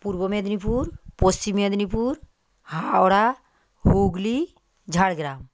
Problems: constant background noise